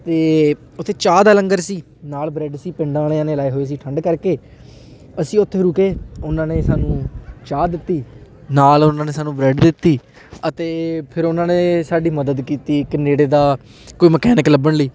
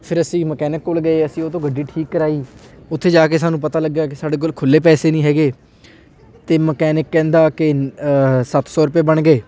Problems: continuous background conversations